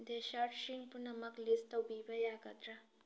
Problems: low volume